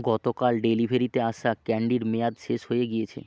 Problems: none marked